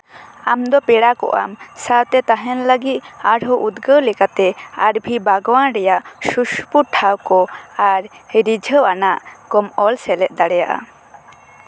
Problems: constant background noise